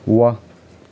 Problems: none marked